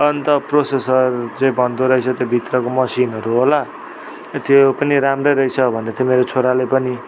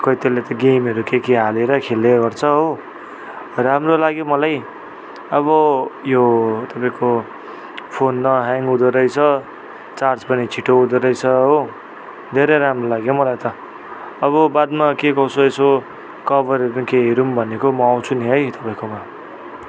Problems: none marked